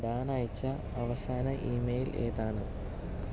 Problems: low volume